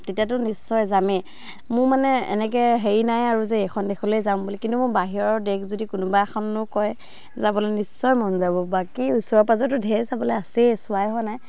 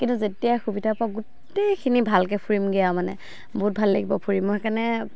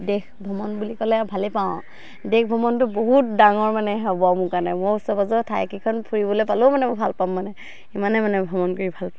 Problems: constant background noise